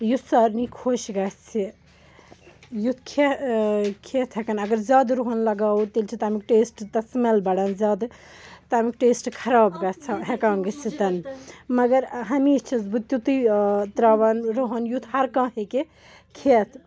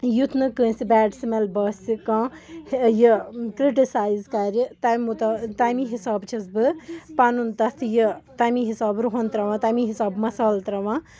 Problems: background sounds at intervals, background conversations at intervals